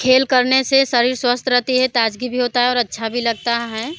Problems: constant background noise